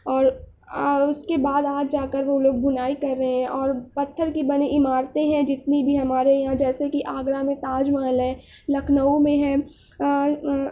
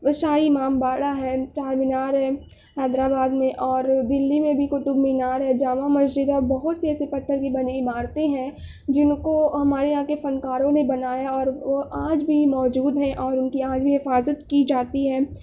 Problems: none marked